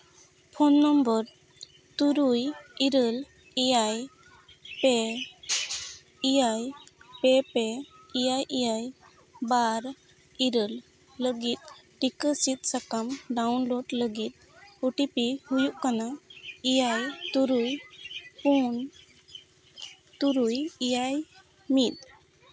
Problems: background sounds at intervals, background conversations at intervals